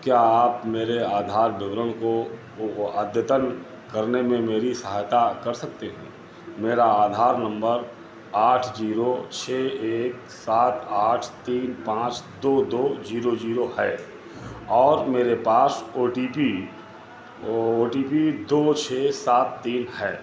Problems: constant background noise, background conversations at intervals